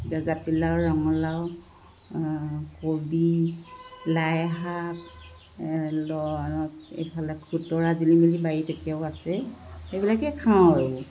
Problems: constant background noise